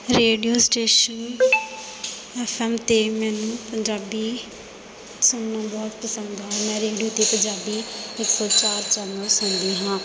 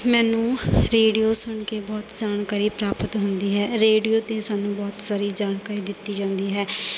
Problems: none marked